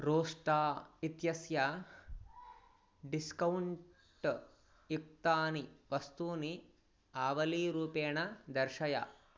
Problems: none marked